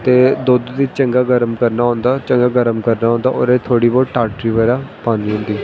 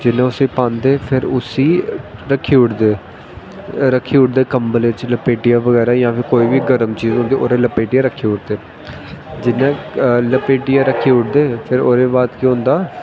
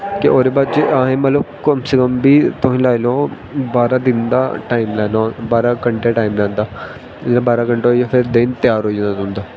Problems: constant background noise